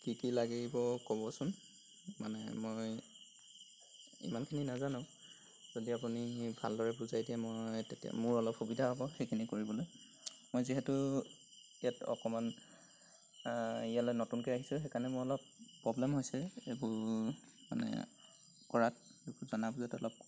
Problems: constant background noise